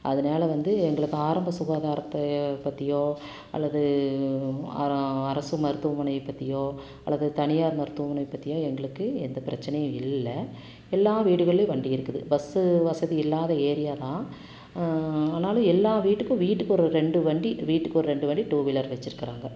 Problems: constant background noise